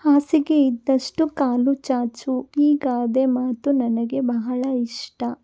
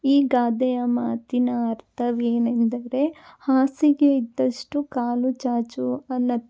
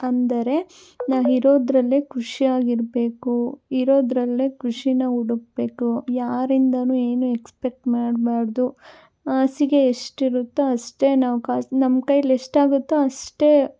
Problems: none marked